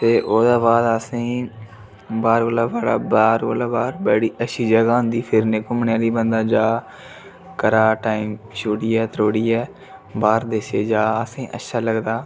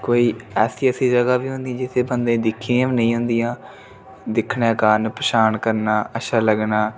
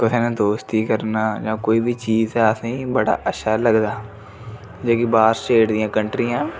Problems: none marked